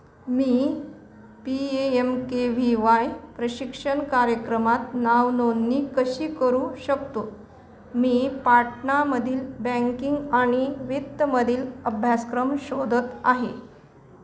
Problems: background sounds at intervals